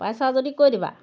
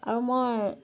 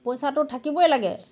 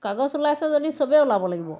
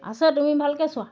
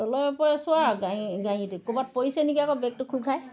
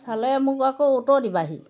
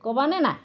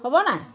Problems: none marked